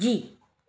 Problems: none marked